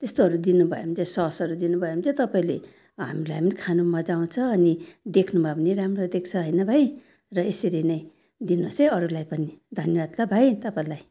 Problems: none marked